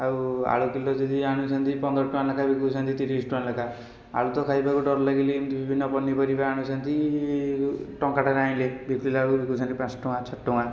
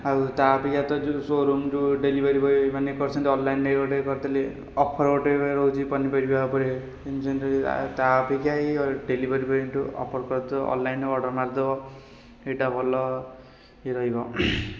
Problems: constant background noise